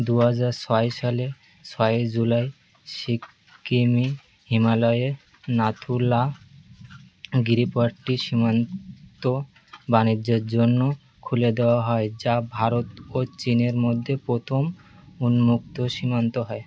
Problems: background sounds at intervals